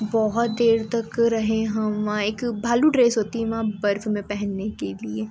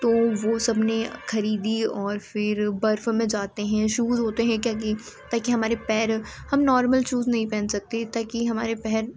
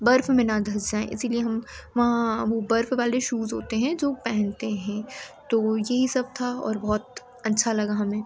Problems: constant background noise